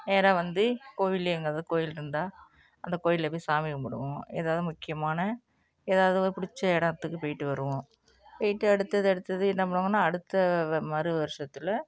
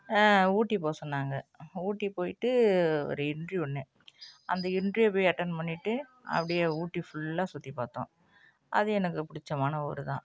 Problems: none marked